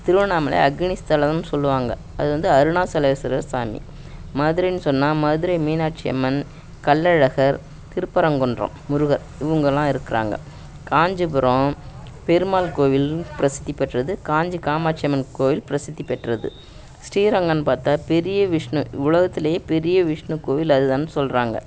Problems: none marked